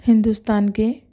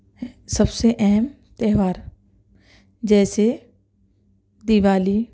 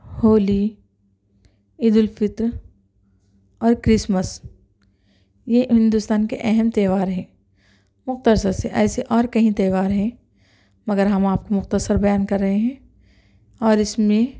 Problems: background sounds at intervals